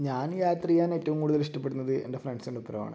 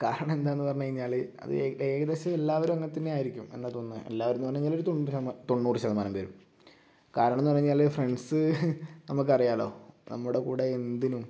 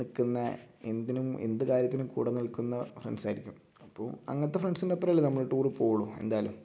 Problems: low volume